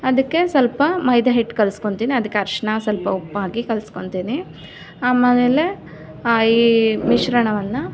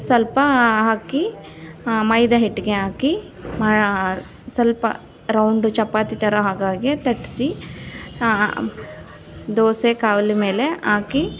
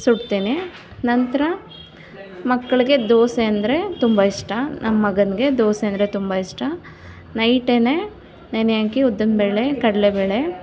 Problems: none marked